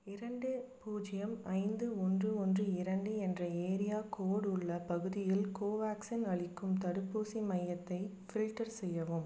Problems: low volume